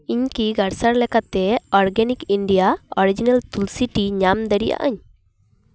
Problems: none marked